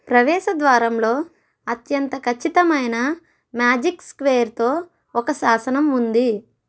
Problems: none marked